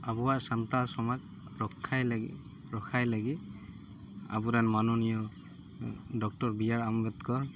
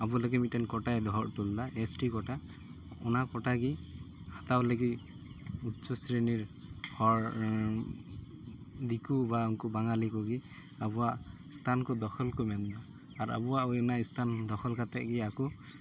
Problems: constant background noise